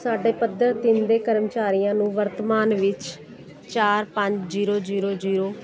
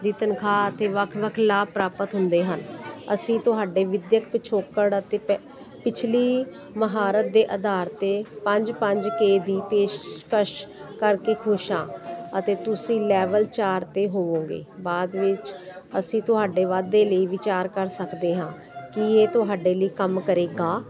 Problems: constant background noise